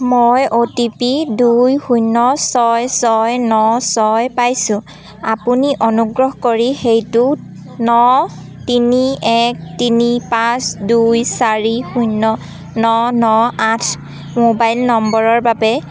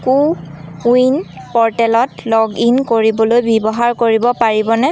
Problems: background sounds at intervals, background conversations at intervals